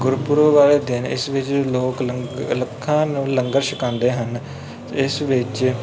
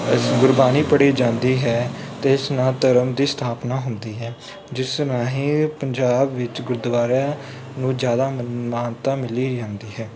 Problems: background sounds at intervals